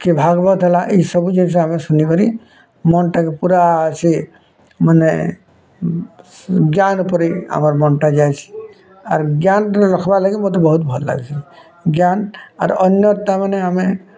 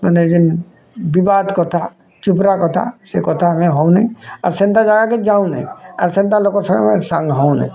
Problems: constant background noise, continuous background conversations